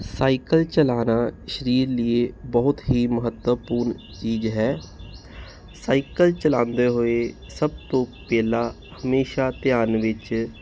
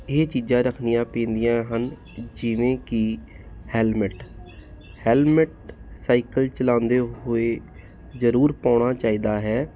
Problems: none marked